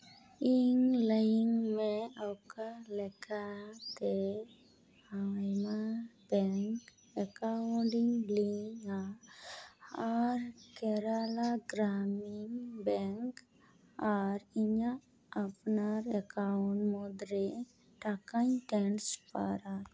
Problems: none marked